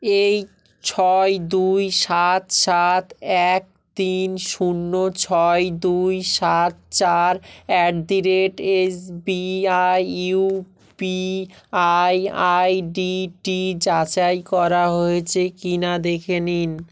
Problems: none marked